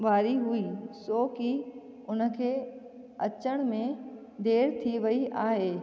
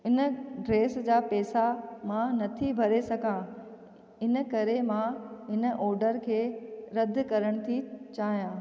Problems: echo